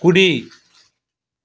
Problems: background sounds at intervals